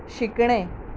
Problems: constant background noise